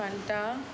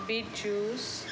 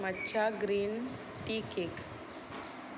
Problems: background sounds at intervals